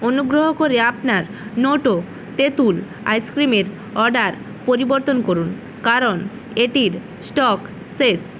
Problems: constant background noise